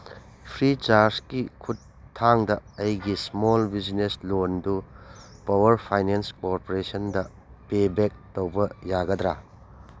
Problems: none marked